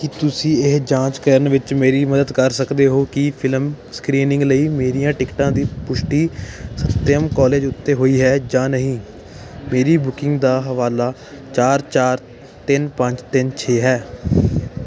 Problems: none marked